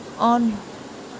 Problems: none marked